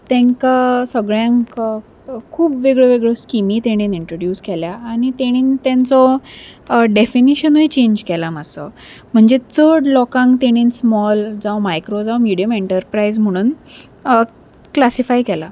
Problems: none marked